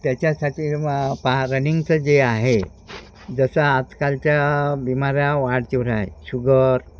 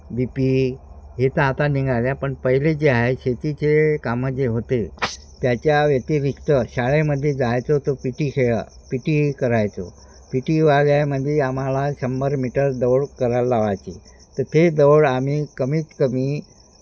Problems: constant background noise, background conversations at intervals